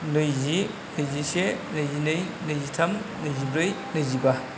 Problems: low volume